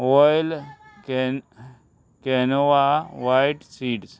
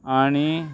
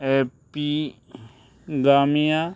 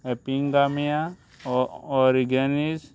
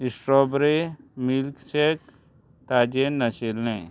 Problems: constant background noise